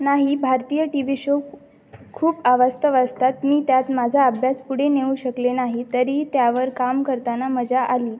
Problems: none marked